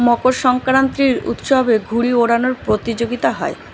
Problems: none marked